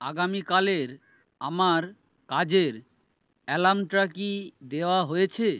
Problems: none marked